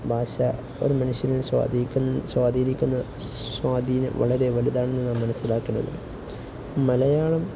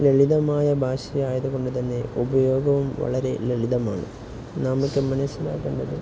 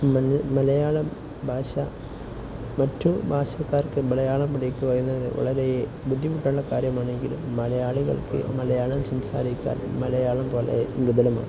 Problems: none marked